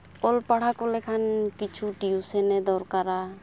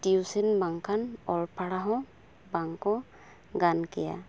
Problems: background sounds at intervals